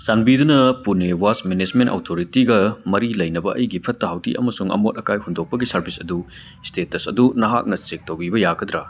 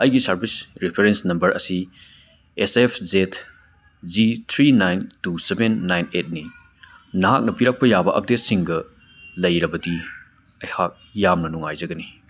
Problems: background conversations at intervals